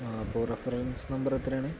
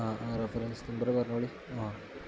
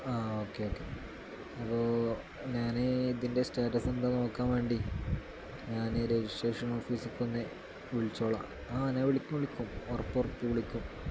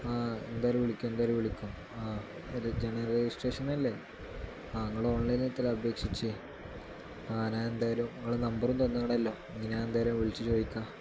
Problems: constant background noise, low volume